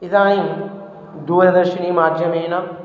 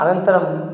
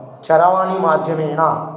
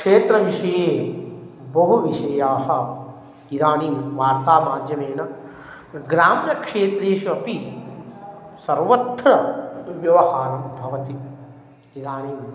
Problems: background sounds at intervals